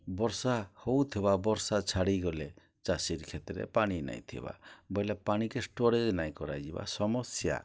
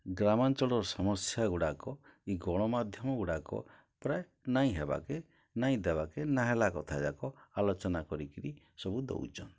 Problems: low volume